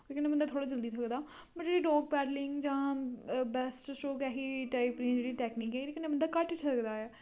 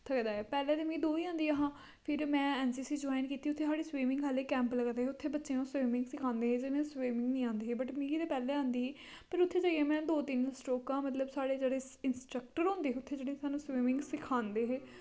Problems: constant background noise